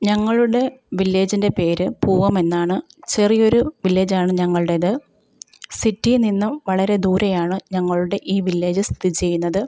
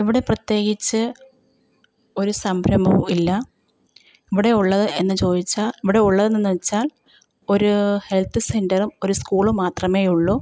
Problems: none marked